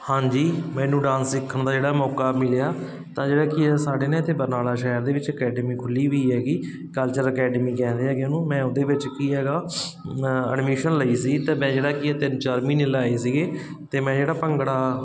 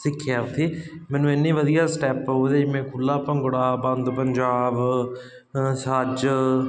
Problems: constant background noise